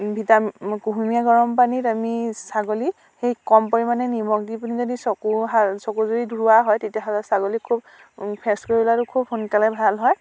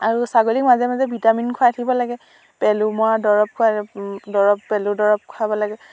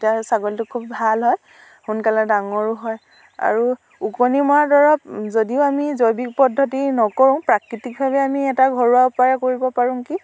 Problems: constant background noise